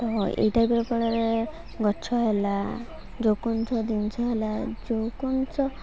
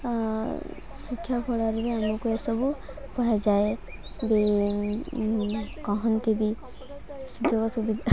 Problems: constant background noise, continuous background conversations